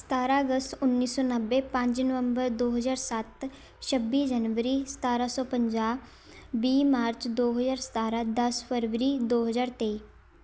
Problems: constant background noise